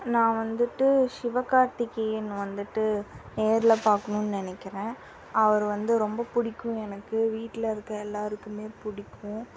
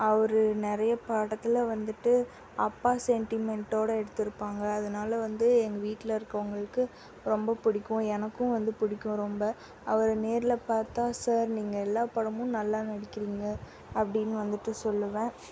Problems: constant background noise